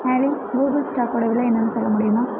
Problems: background sounds at intervals